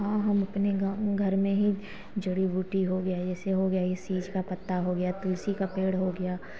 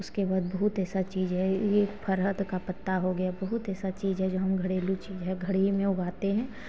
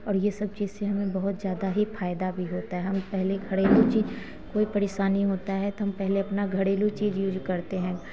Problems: background sounds at intervals, background conversations at intervals